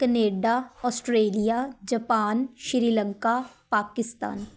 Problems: none marked